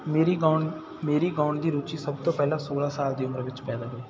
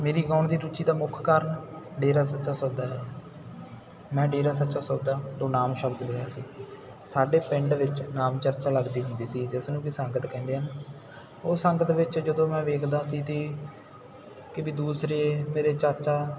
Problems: none marked